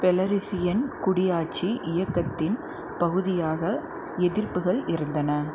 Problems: constant background noise